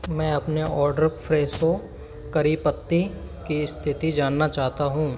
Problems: constant background noise, background conversations at intervals